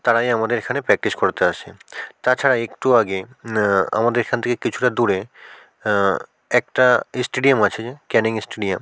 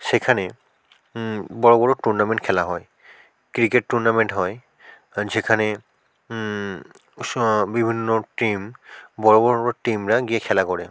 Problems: background sounds at intervals